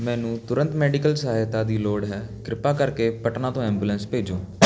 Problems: none marked